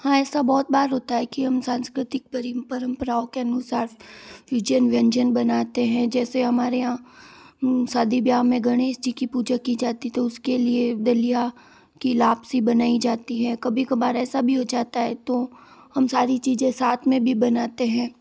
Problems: background sounds at intervals